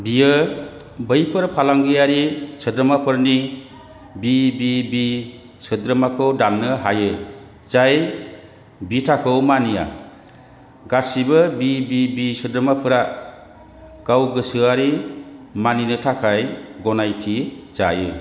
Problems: constant background noise